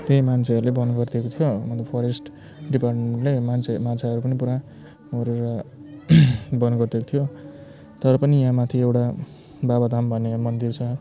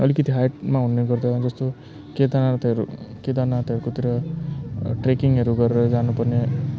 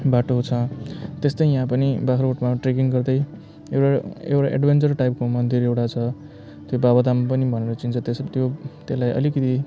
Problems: constant background noise